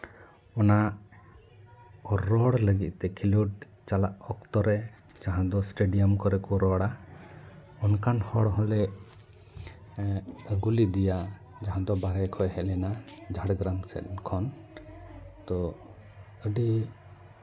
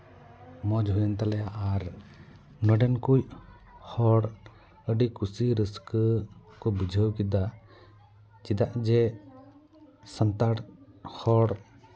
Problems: background conversations at intervals